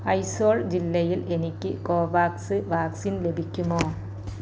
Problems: low volume